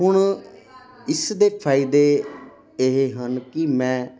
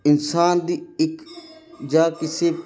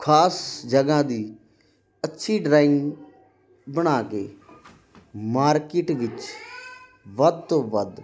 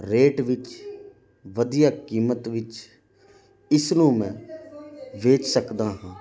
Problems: constant background noise